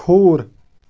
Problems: background sounds at intervals